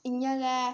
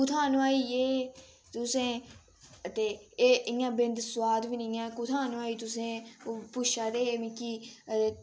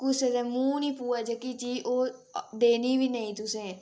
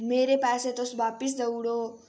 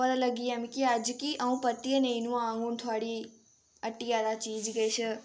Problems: none marked